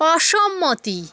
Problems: background sounds at intervals